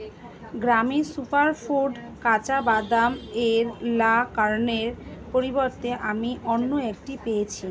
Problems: constant background noise, background conversations at intervals